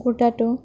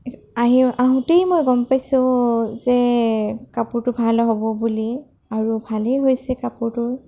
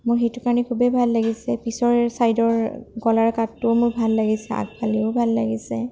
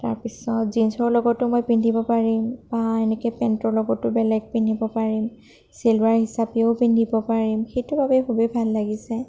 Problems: none marked